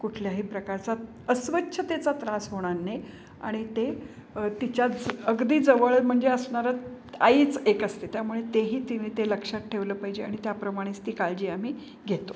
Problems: constant background noise